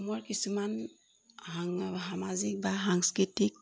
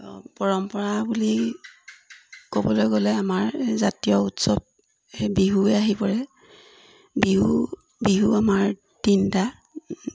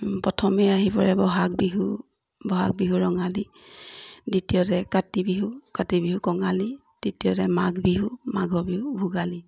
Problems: background sounds at intervals